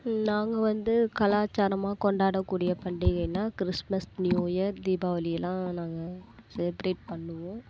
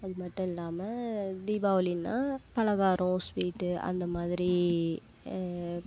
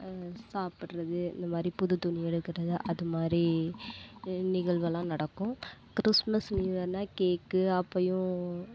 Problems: constant background noise